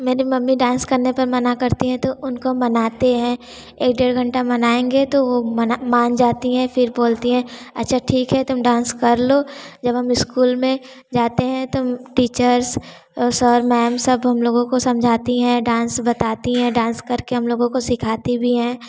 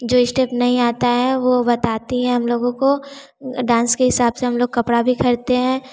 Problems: constant background noise